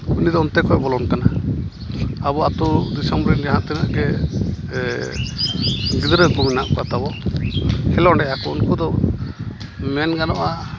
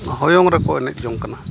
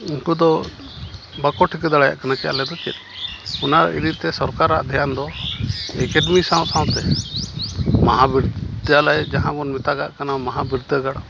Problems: constant background noise